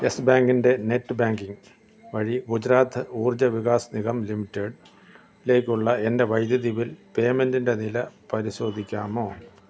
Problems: constant background noise